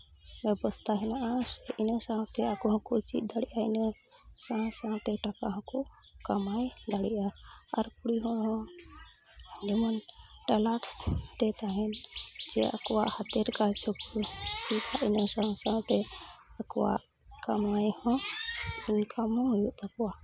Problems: constant background noise, low volume